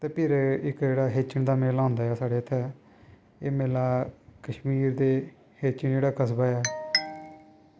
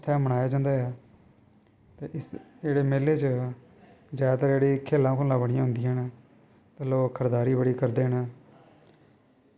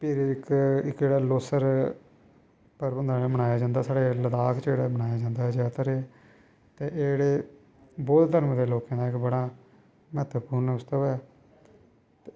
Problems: none marked